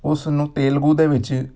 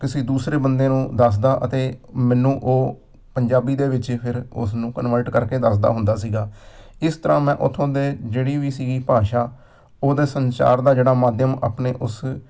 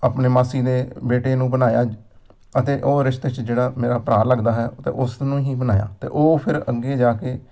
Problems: none marked